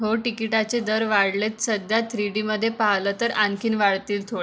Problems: none marked